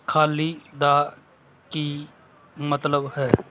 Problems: background sounds at intervals